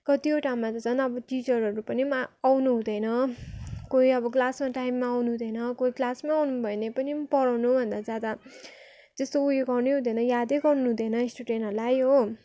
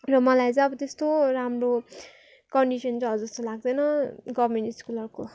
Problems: continuous background conversations